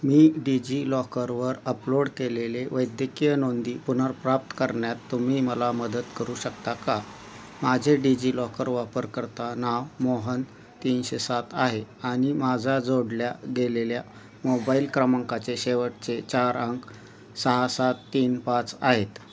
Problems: constant background noise